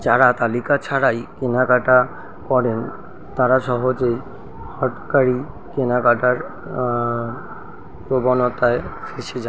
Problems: constant background noise